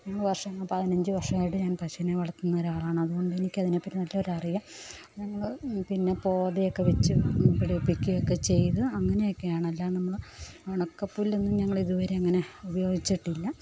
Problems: none marked